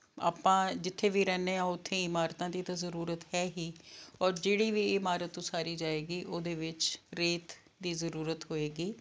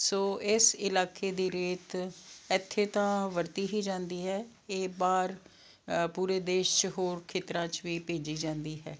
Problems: none marked